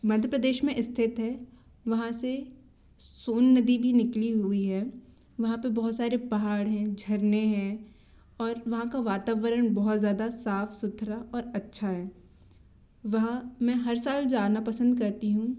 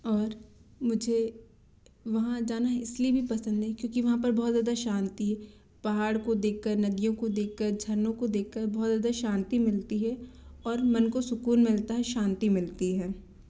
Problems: none marked